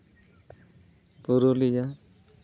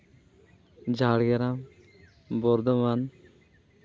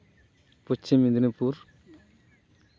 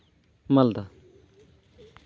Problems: constant background noise, background conversations at intervals